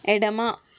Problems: constant background noise